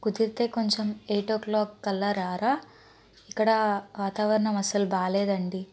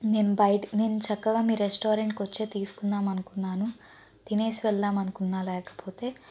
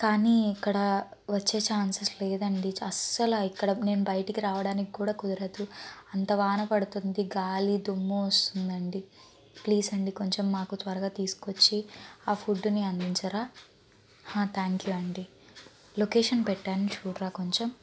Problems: background sounds at intervals